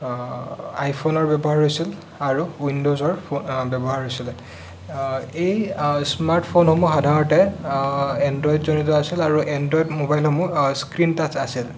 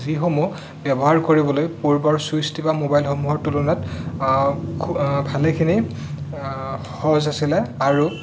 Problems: none marked